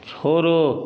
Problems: none marked